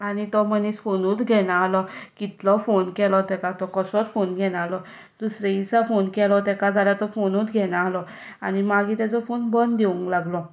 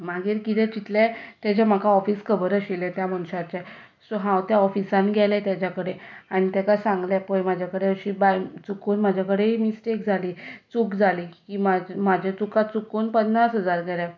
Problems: background sounds at intervals